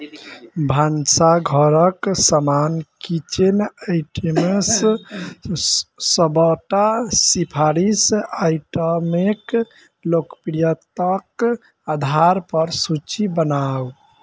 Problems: background sounds at intervals